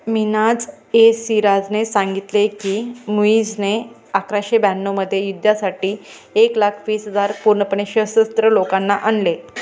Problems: background sounds at intervals